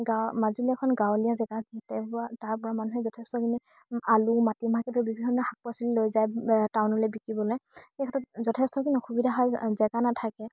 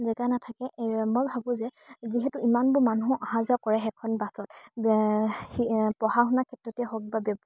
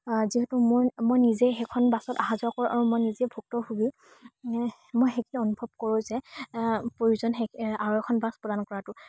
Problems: background sounds at intervals